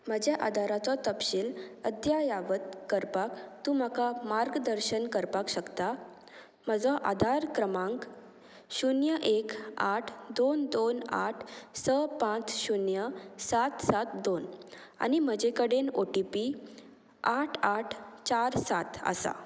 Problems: constant background noise